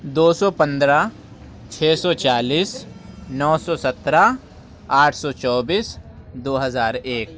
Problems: constant background noise